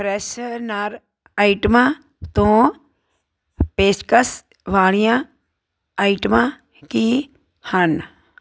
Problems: none marked